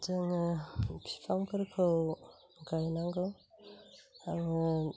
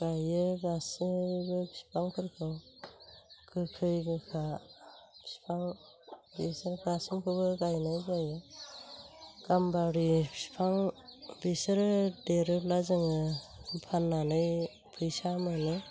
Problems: constant background noise